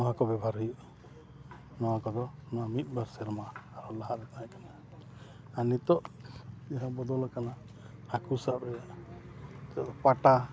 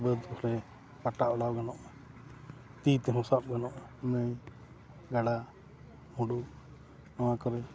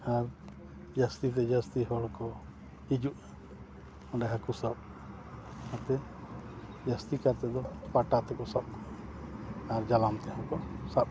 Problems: background sounds at intervals, low volume